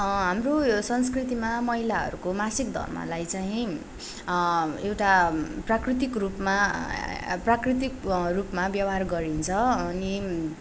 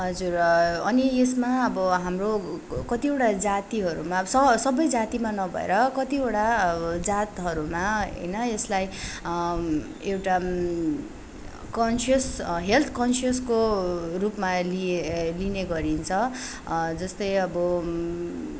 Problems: background sounds at intervals